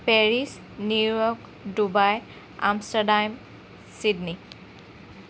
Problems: constant background noise